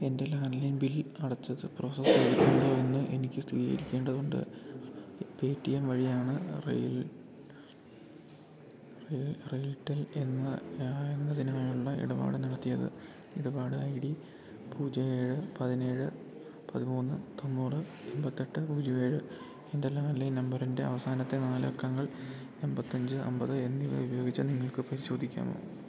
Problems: constant background noise